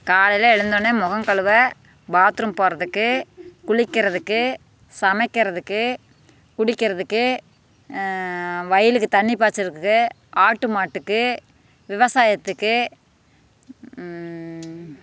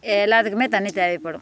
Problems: constant background noise